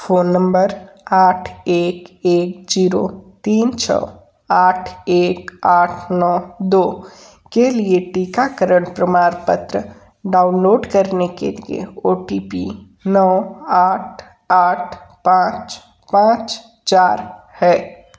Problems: background sounds at intervals